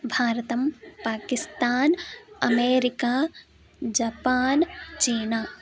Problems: background conversations at intervals